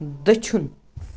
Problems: none marked